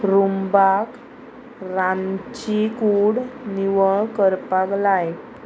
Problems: constant background noise